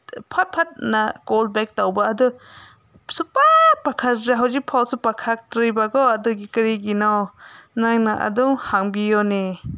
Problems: background sounds at intervals